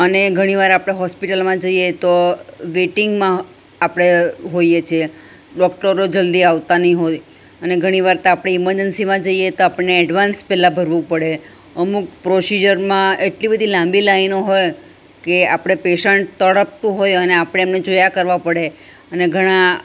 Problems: none marked